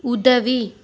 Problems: none marked